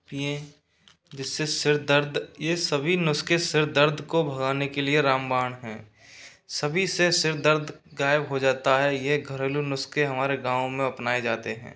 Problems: none marked